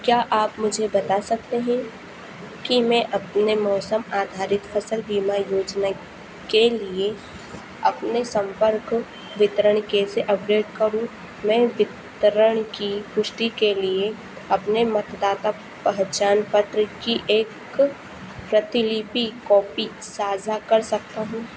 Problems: none marked